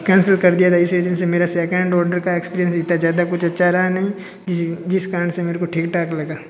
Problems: constant background noise, background conversations at intervals